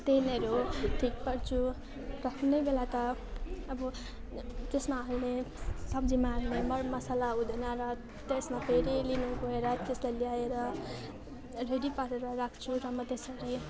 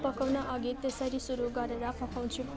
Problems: constant background noise, continuous background conversations